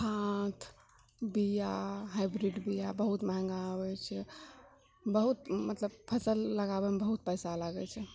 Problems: none marked